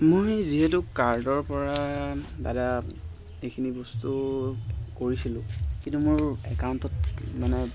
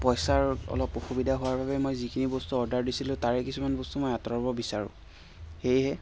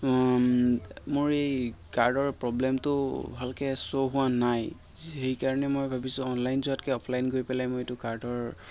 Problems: constant background noise